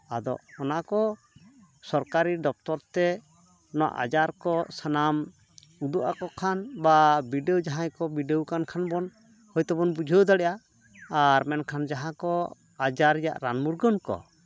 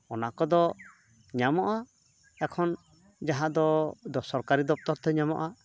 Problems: background sounds at intervals